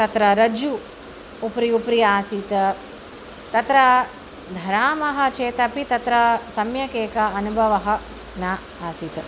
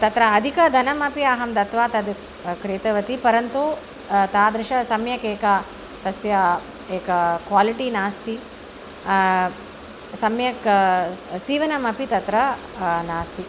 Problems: constant background noise